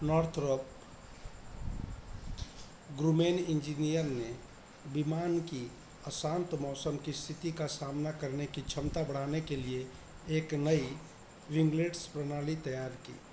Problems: constant background noise